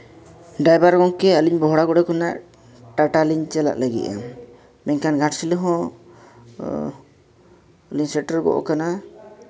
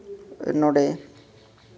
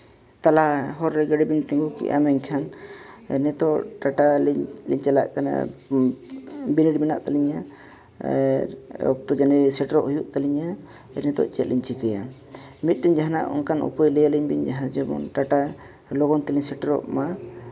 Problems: background sounds at intervals